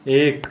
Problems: constant background noise